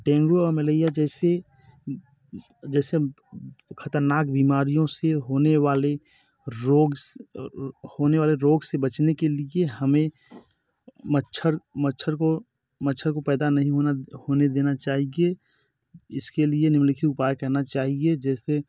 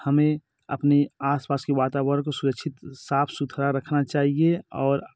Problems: none marked